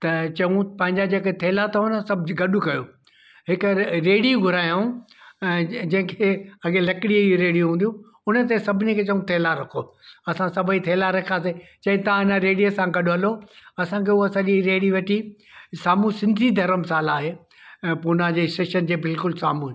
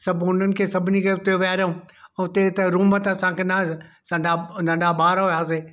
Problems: none marked